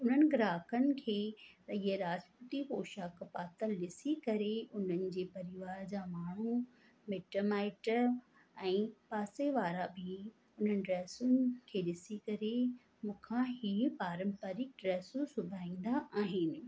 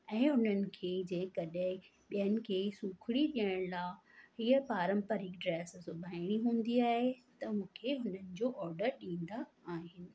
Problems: constant background noise, echo